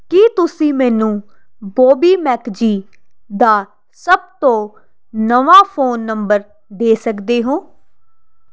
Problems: constant background noise